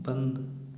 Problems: low volume